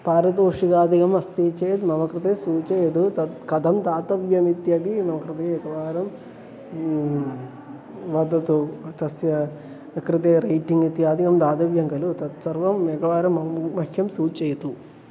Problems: constant background noise